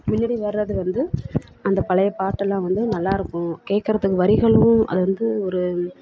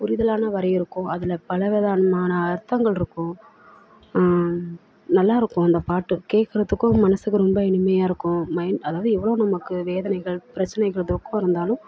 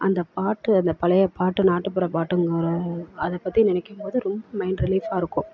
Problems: constant background noise, background conversations at intervals, low volume